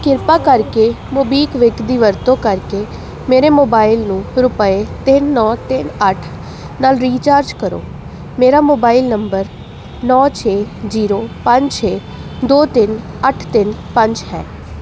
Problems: constant background noise